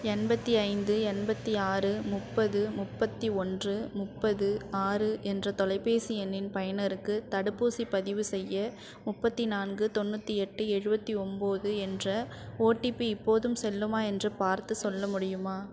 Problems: constant background noise